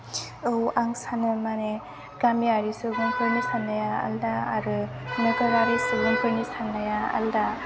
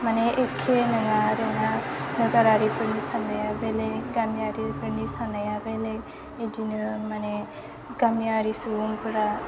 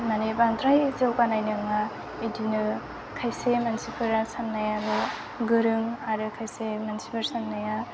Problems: low volume